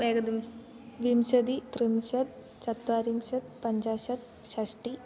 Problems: background conversations at intervals